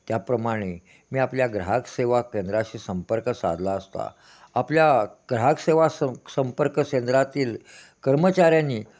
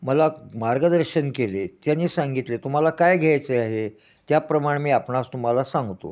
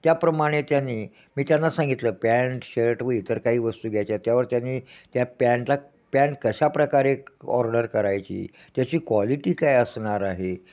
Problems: none marked